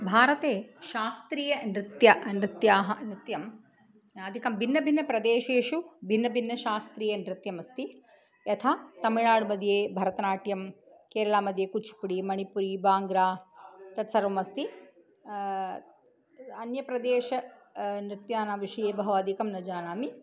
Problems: none marked